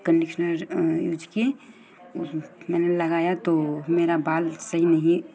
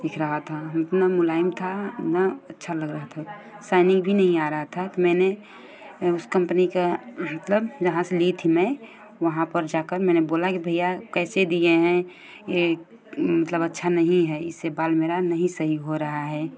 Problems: none marked